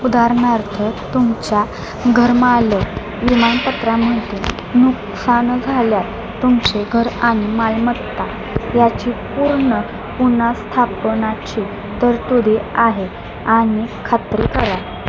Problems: none marked